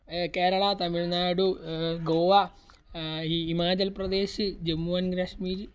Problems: constant background noise, low volume